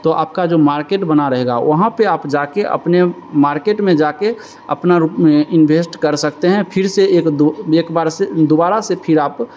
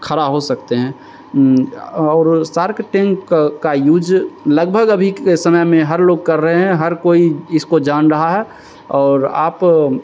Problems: constant background noise